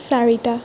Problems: constant background noise